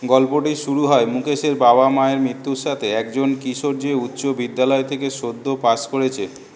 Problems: background conversations at intervals